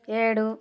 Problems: constant background noise